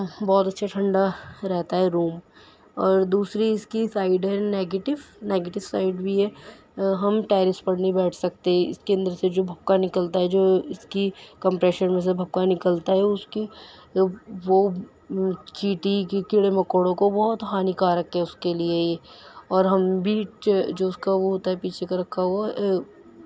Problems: none marked